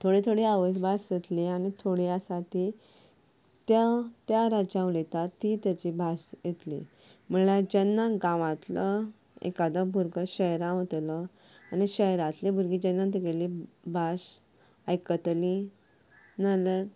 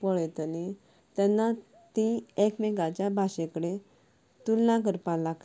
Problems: background sounds at intervals, low volume